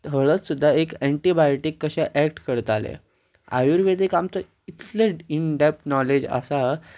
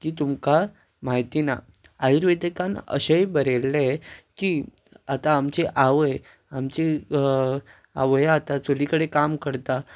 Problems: constant background noise